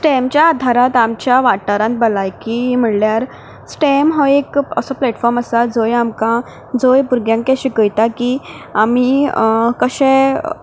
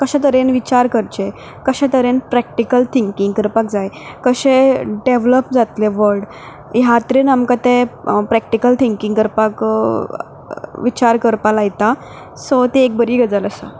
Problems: background sounds at intervals